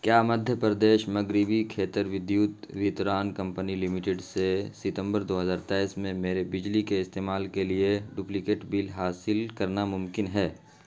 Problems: constant background noise